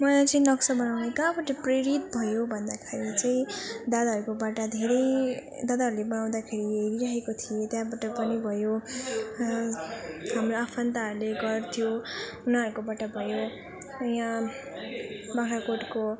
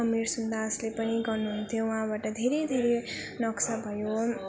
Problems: none marked